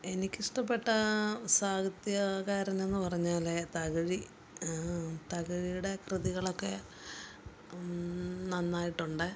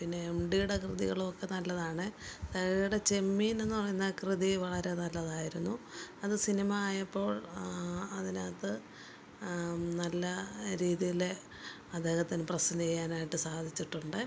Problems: background sounds at intervals, low volume